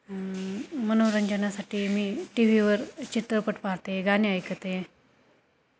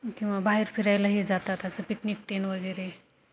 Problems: constant background noise, background conversations at intervals